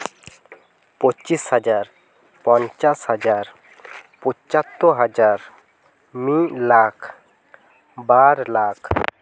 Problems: none marked